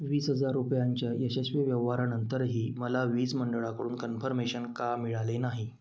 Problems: constant background noise